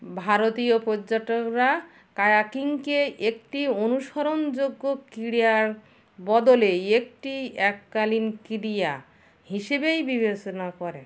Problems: none marked